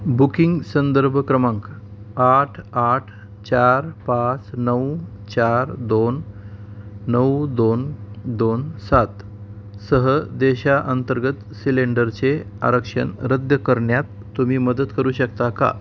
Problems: none marked